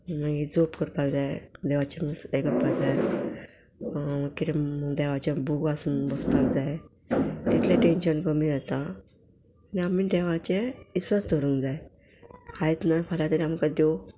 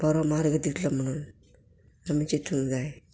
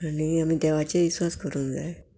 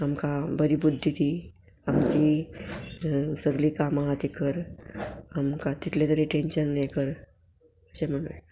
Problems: background sounds at intervals